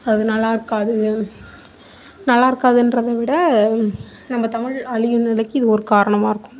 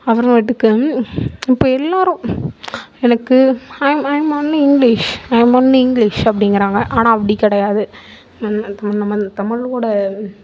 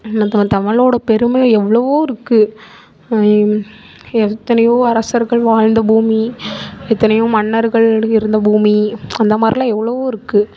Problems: none marked